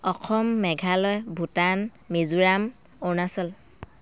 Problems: constant background noise